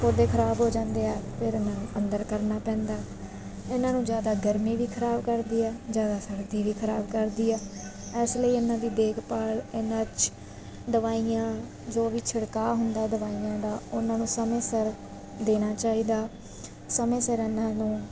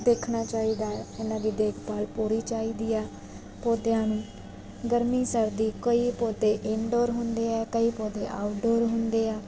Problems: constant background noise